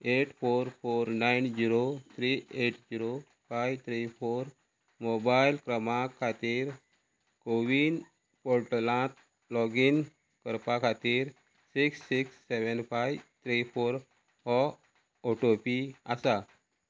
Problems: none marked